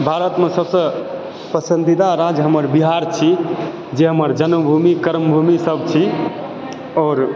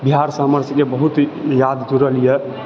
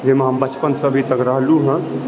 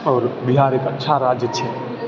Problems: continuous background conversations